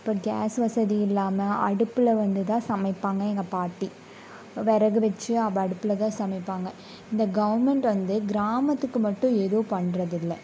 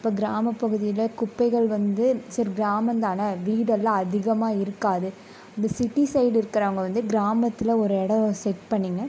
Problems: none marked